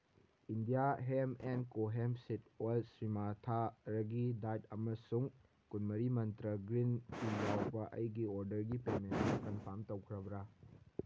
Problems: background sounds at intervals